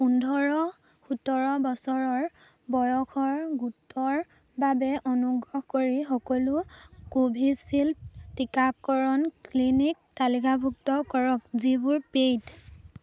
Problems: background sounds at intervals, background conversations at intervals